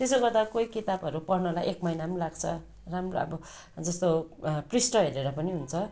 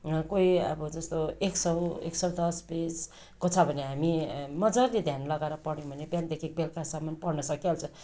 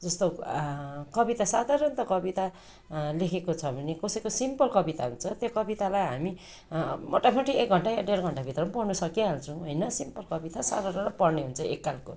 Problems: constant background noise